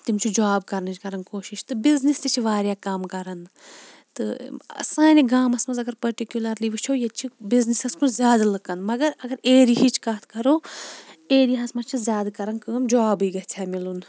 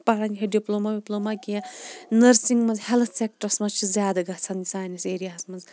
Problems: background sounds at intervals